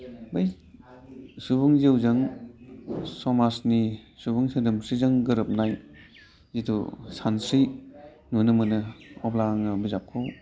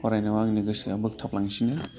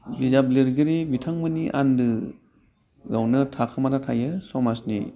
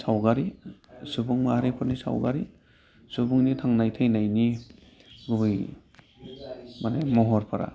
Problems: low volume